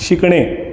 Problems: constant background noise, echo